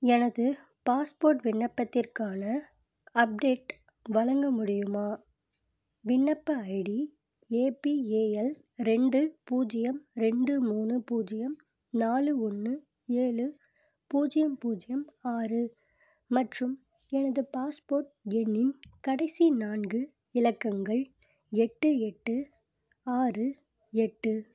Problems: none marked